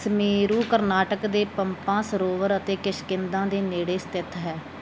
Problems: background sounds at intervals